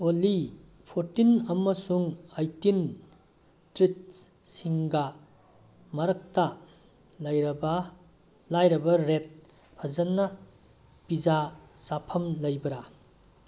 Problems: background sounds at intervals